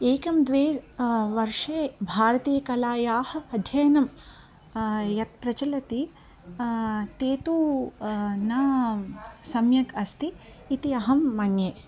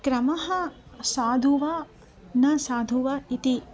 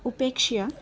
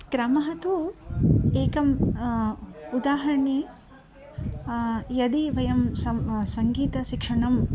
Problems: background sounds at intervals